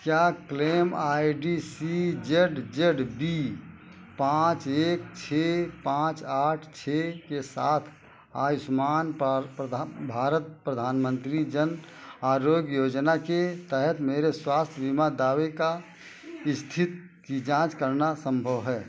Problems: none marked